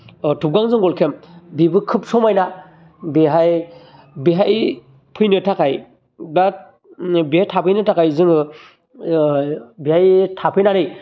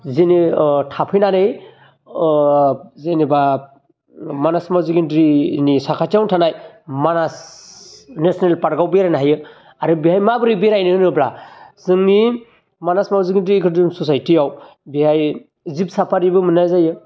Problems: constant background noise